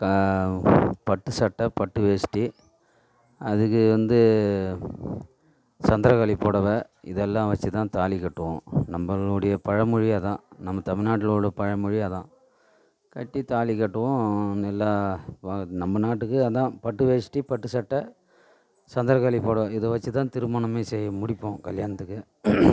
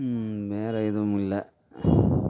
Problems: background sounds at intervals